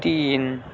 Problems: none marked